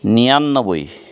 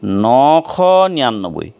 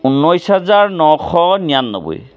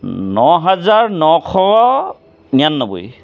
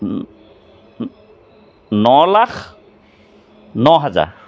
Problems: constant background noise